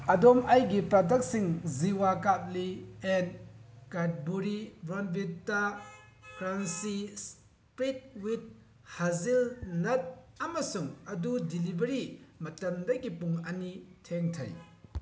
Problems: background sounds at intervals